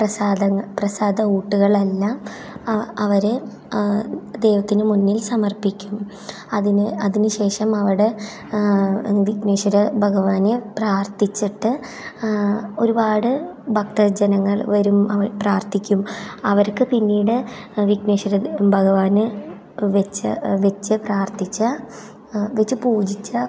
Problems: none marked